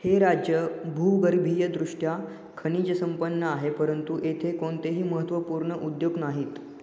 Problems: background sounds at intervals, echo